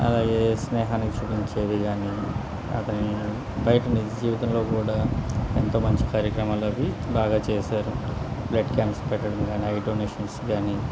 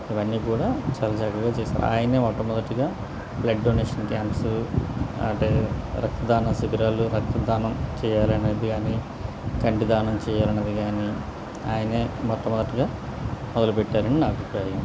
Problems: constant background noise